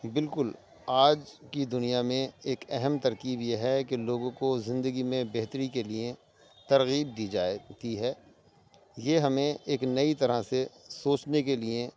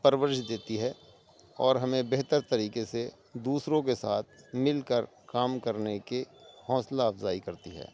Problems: constant background noise